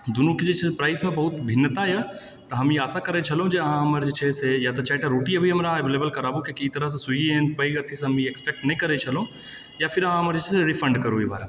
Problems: background sounds at intervals